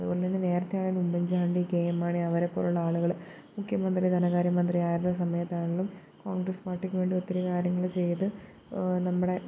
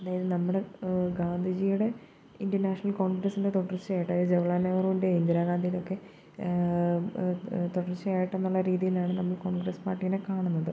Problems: constant background noise, low volume